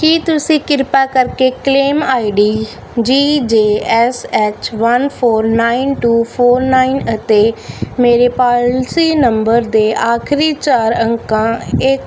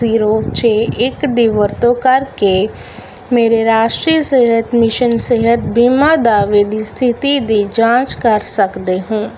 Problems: none marked